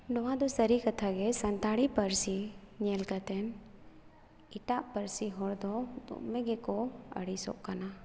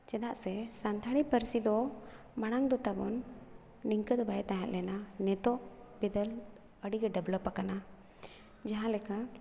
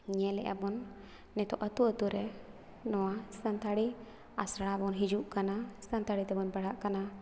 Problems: none marked